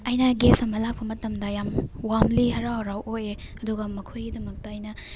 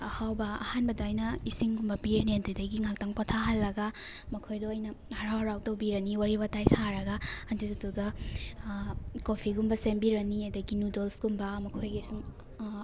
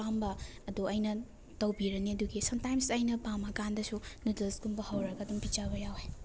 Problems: background sounds at intervals